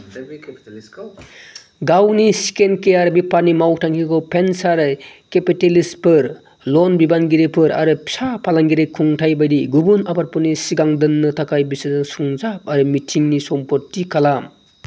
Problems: low volume